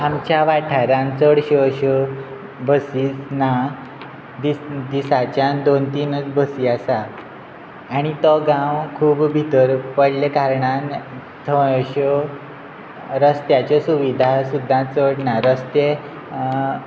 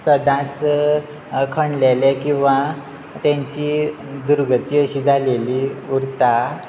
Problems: constant background noise